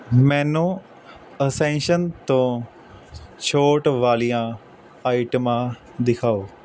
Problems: constant background noise